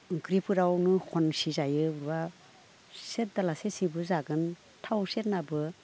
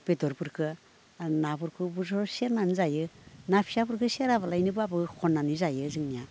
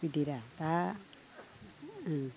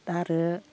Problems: none marked